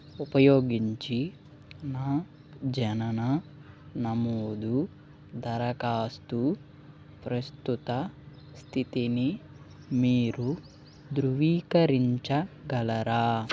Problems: background sounds at intervals, background conversations at intervals